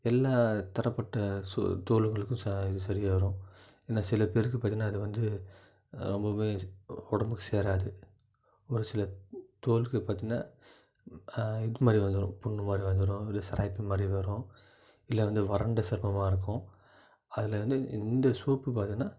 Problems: low volume